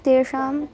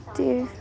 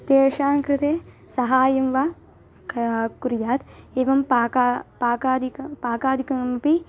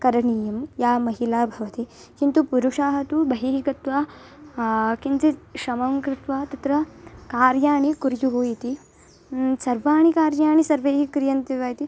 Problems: background sounds at intervals